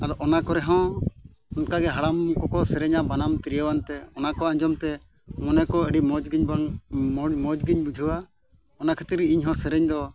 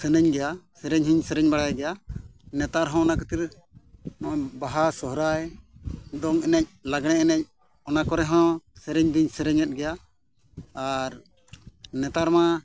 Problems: background sounds at intervals